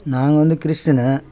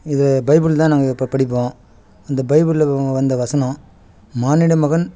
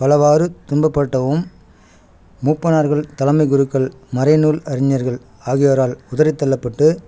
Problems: none marked